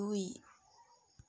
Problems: low volume